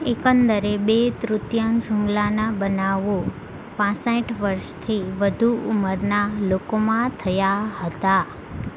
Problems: constant background noise